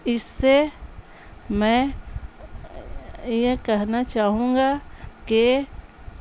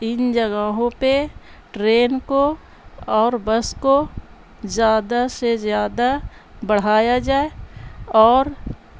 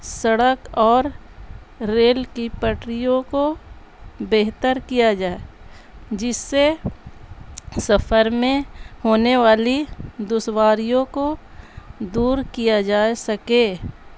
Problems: constant background noise